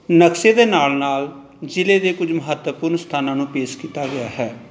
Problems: none marked